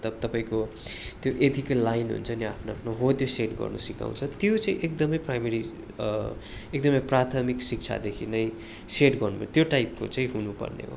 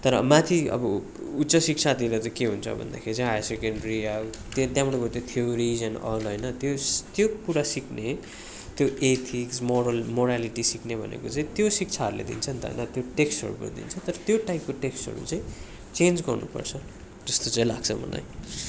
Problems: constant background noise